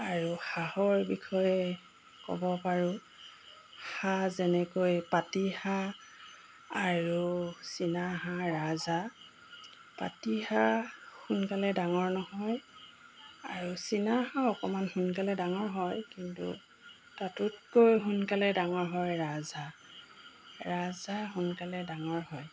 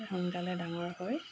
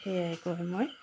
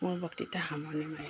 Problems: background sounds at intervals